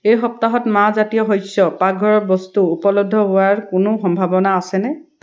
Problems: none marked